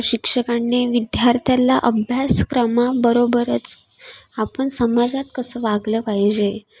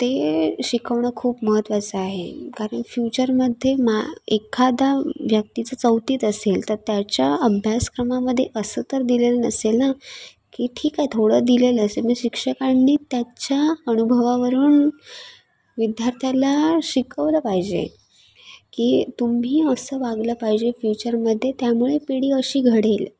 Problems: background sounds at intervals, background conversations at intervals